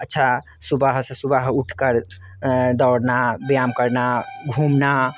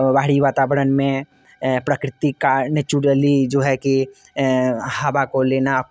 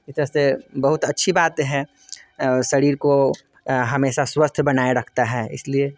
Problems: constant background noise, background conversations at intervals